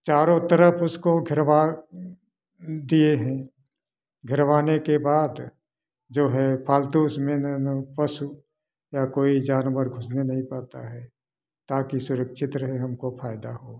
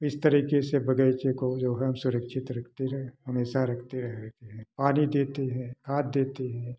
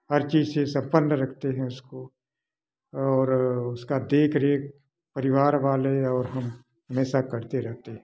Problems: background sounds at intervals